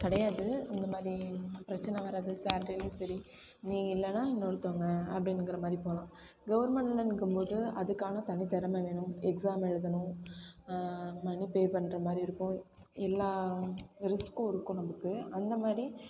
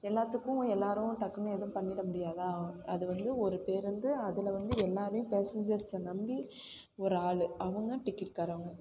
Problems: constant background noise